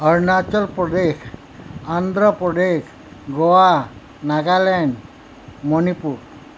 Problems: constant background noise